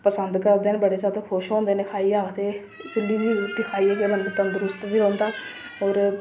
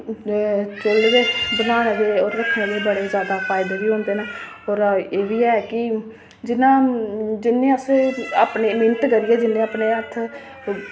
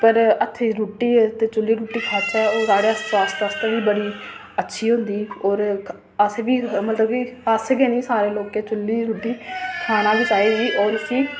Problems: constant background noise